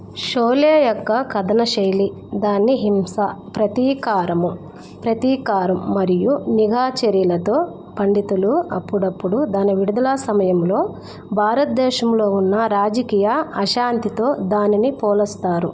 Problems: constant background noise